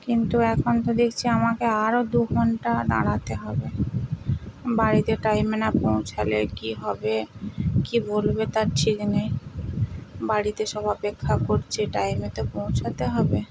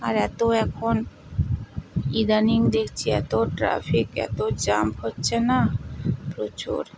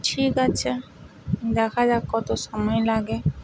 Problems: constant background noise